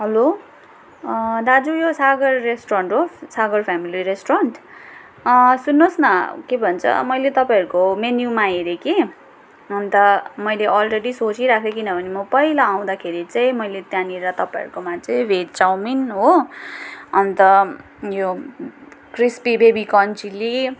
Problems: background sounds at intervals